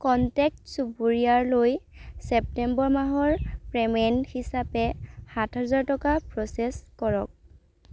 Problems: background sounds at intervals